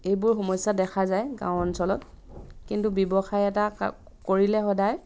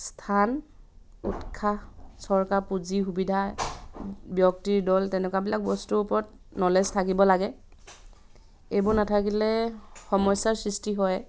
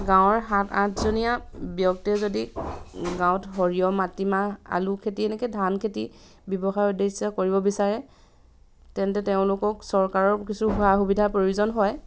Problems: background sounds at intervals